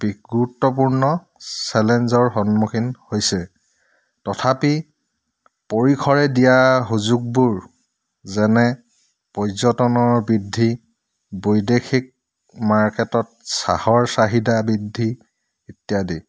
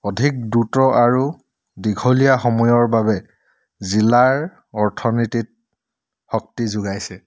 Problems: none marked